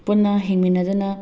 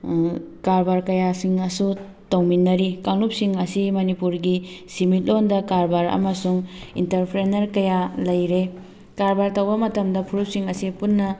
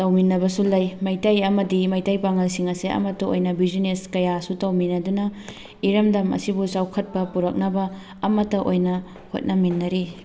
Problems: background sounds at intervals, background conversations at intervals